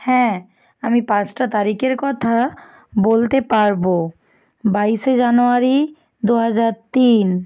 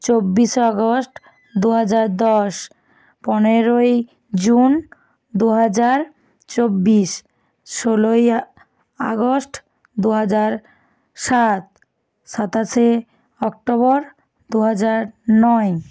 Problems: background sounds at intervals